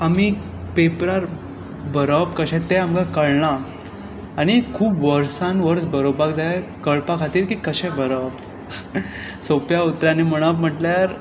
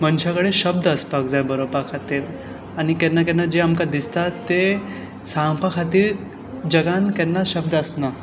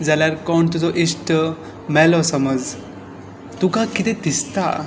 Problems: none marked